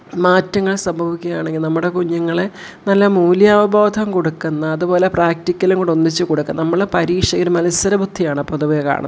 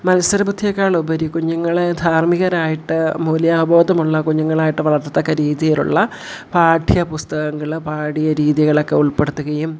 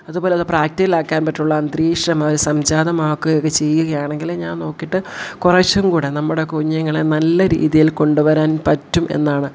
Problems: none marked